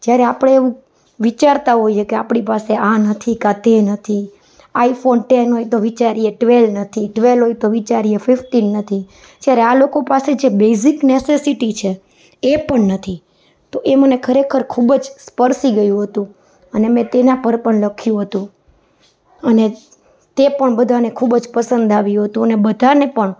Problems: none marked